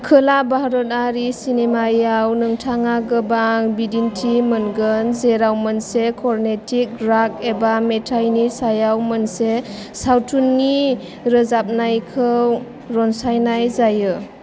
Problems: constant background noise